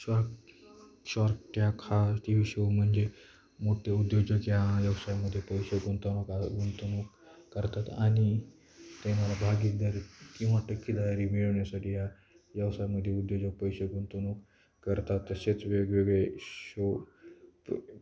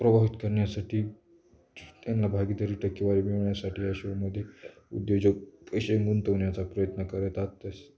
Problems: constant background noise, background conversations at intervals